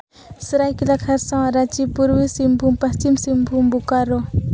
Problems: constant background noise